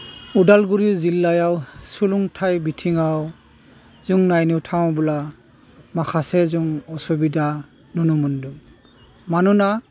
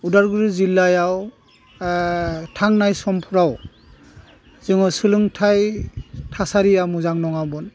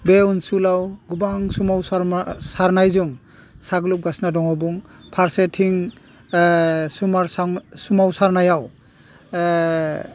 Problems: none marked